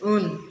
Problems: none marked